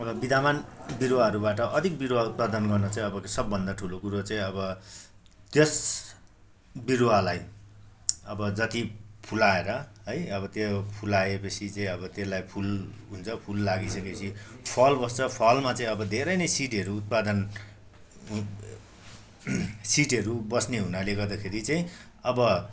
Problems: constant background noise